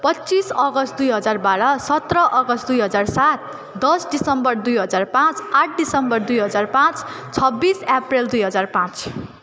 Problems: constant background noise, continuous background conversations